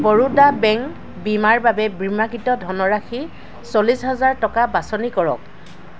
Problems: constant background noise